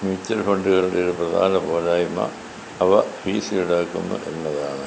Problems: constant background noise